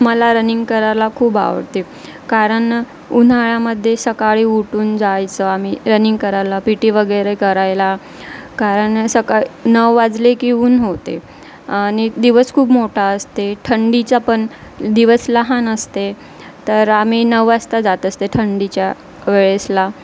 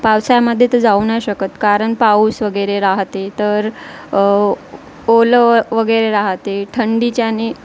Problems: none marked